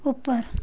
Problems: none marked